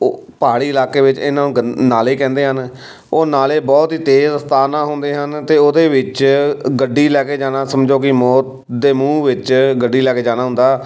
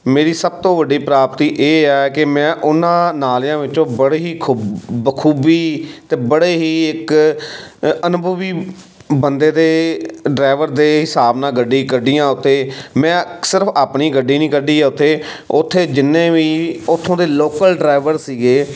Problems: background sounds at intervals